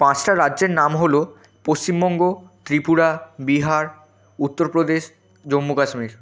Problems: constant background noise